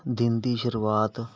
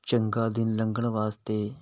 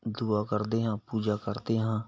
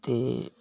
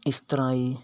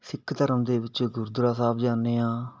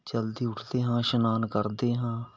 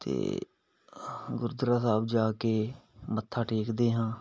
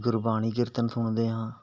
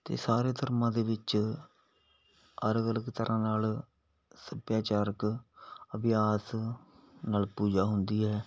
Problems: background sounds at intervals